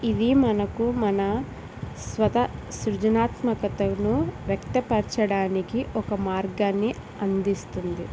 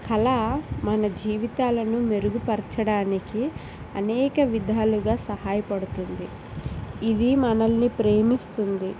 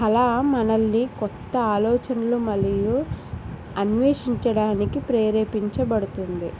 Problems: none marked